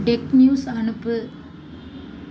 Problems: low volume